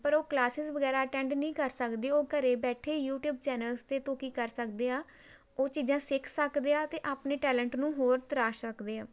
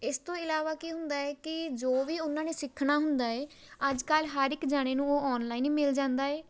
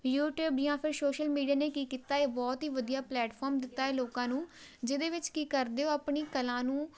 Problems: background sounds at intervals